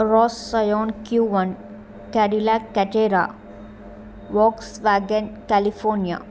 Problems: none marked